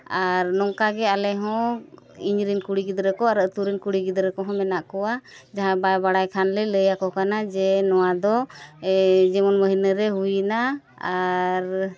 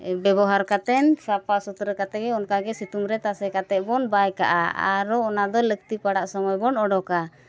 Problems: none marked